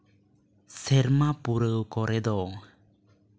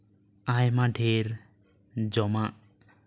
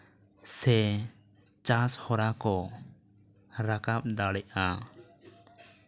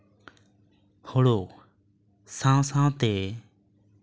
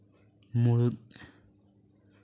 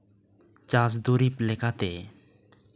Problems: none marked